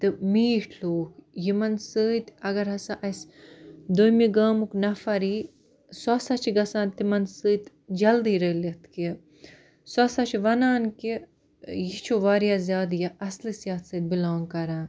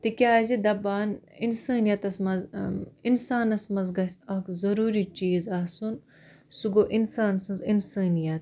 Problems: none marked